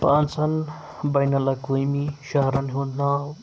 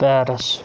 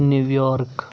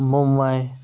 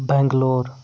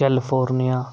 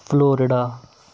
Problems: constant background noise